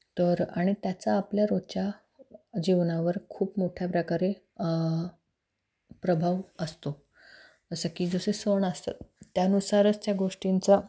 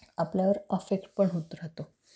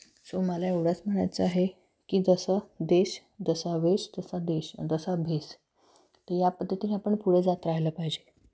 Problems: none marked